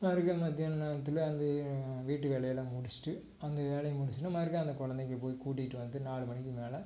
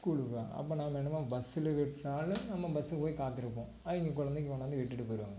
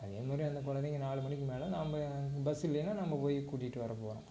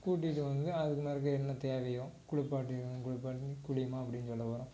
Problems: constant background noise, low volume